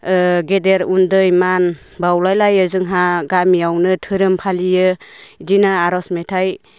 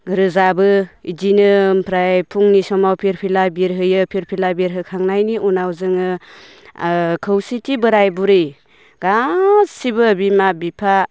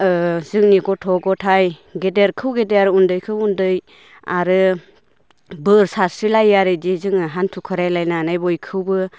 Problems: none marked